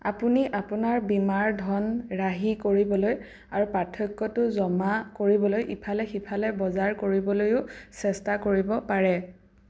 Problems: none marked